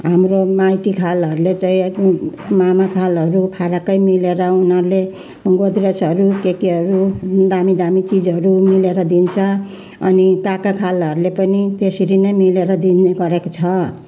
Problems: constant background noise, continuous background conversations